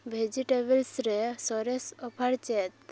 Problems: background sounds at intervals